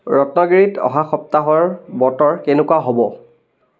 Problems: background conversations at intervals